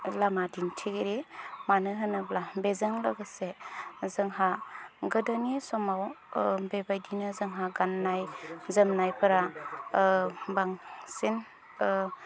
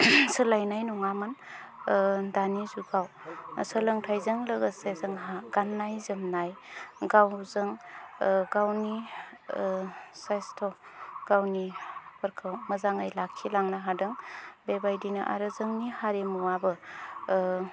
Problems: low volume